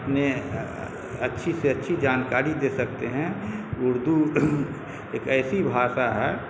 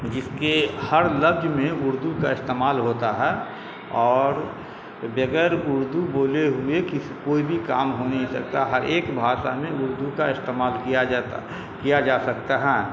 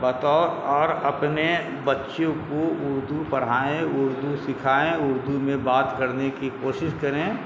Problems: constant background noise